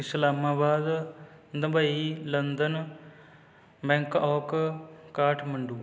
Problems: none marked